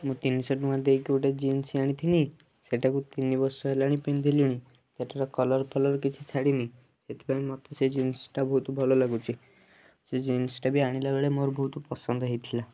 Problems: low volume